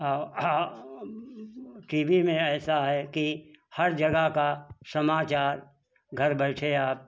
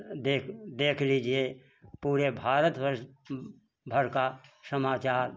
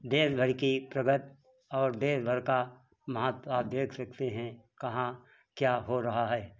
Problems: background sounds at intervals